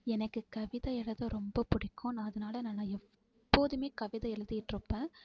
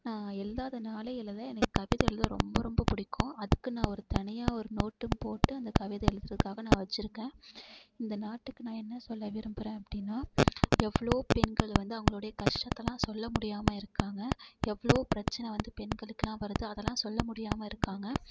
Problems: constant background noise